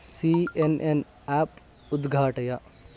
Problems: background sounds at intervals